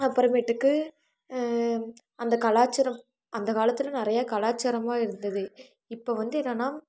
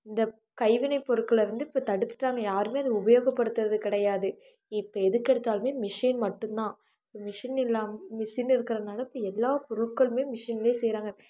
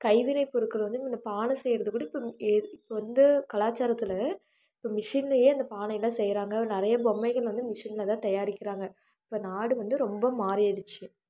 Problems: none marked